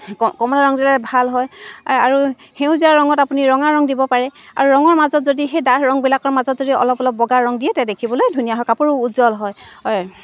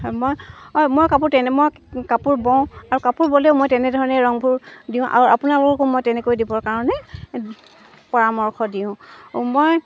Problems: none marked